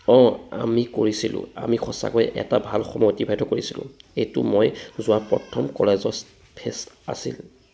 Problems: none marked